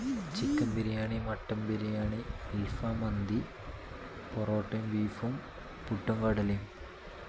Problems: constant background noise